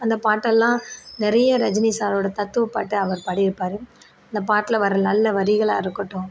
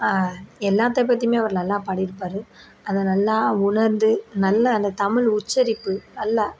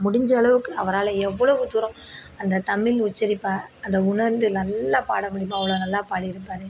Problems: background sounds at intervals